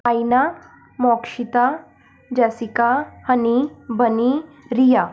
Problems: background sounds at intervals